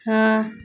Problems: none marked